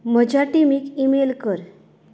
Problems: none marked